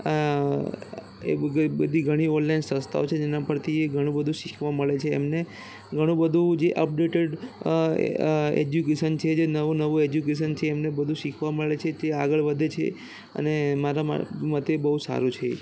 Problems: constant background noise, background conversations at intervals